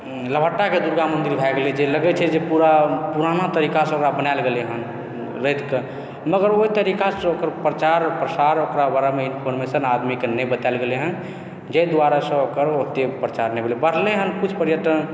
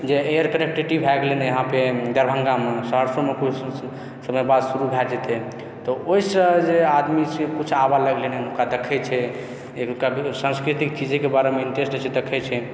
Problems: background conversations at intervals